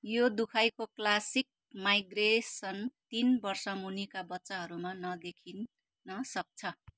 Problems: none marked